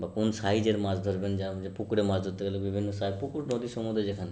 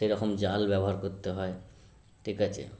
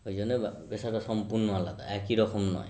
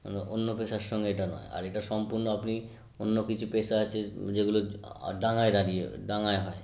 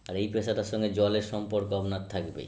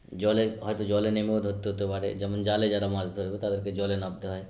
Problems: constant background noise